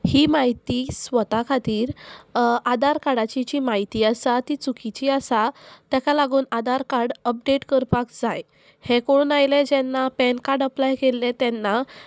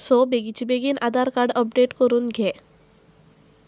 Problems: constant background noise